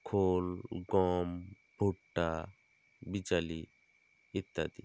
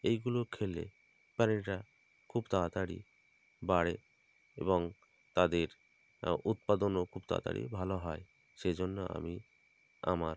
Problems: constant background noise